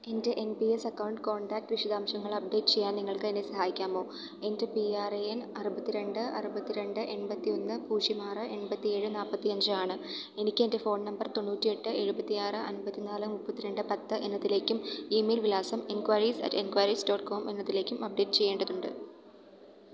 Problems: background sounds at intervals